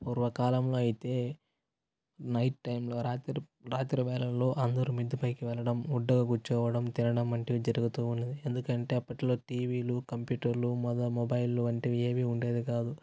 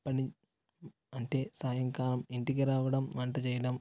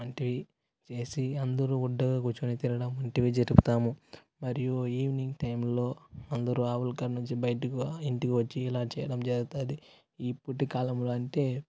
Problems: constant background noise